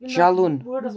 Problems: background sounds at intervals